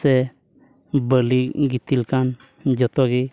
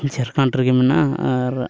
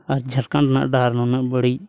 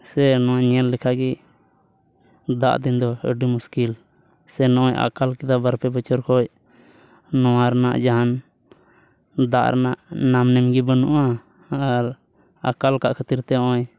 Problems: none marked